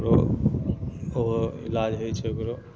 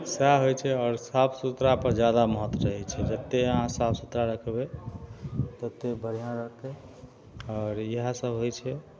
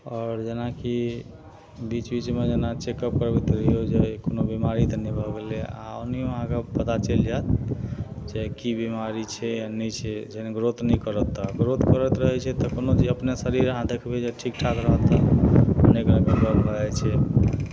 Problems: none marked